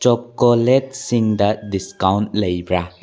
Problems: low volume